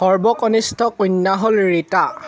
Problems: constant background noise